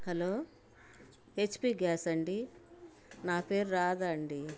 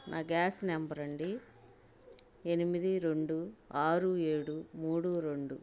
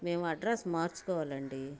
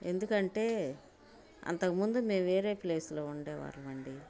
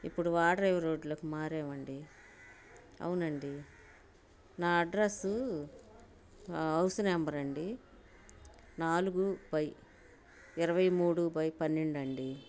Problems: constant background noise